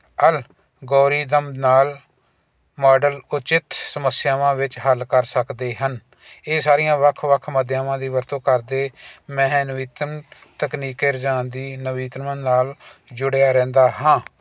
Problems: none marked